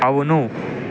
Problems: constant background noise